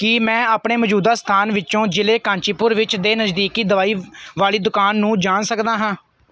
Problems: background sounds at intervals